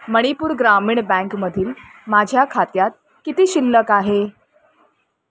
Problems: none marked